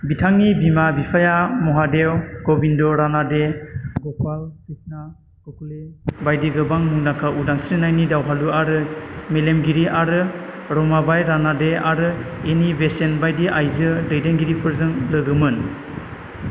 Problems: constant background noise